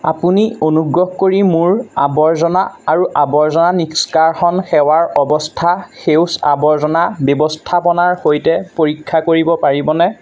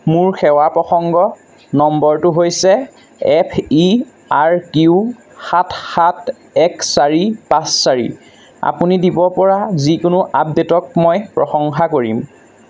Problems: constant background noise